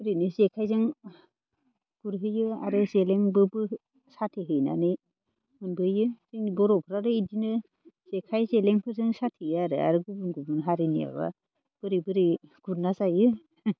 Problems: none marked